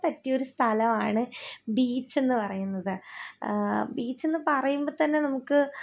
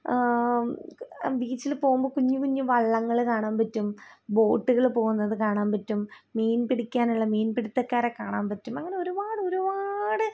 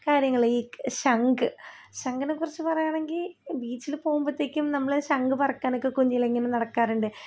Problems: low volume